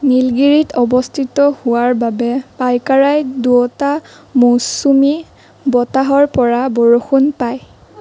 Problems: none marked